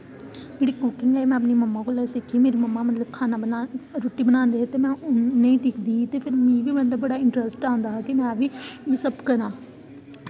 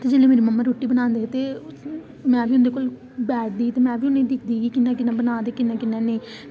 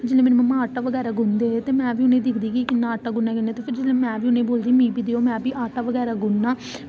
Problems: constant background noise